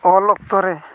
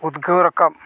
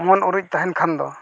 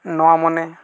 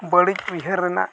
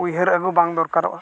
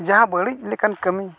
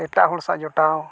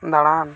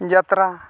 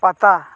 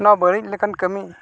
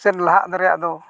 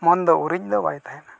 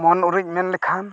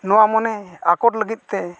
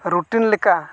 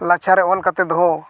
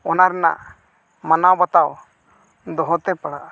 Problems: none marked